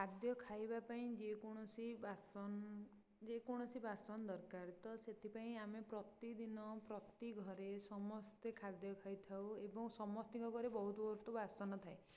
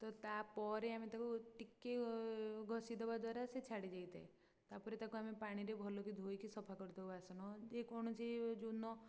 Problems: low volume